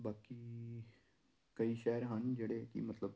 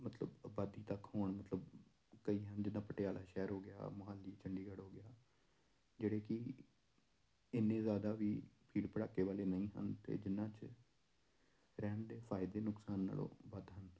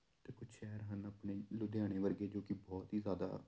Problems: none marked